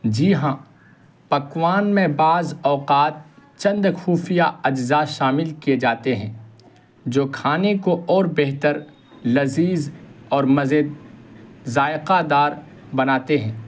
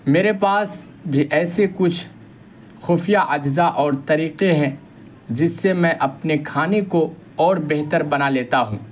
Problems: constant background noise